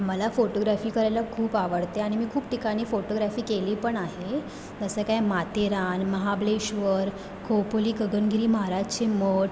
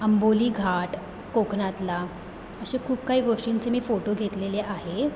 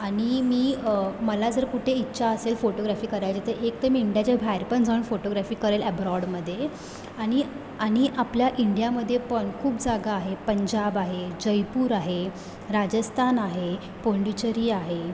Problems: background sounds at intervals